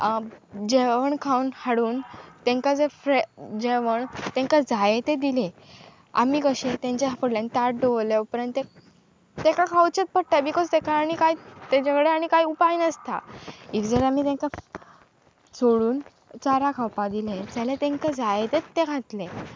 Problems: constant background noise